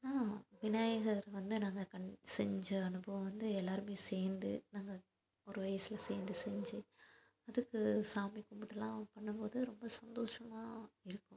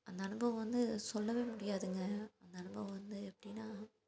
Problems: constant background noise